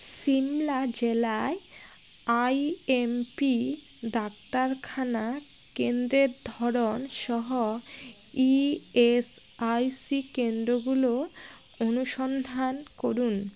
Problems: constant background noise